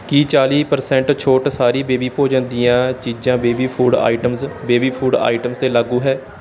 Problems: background sounds at intervals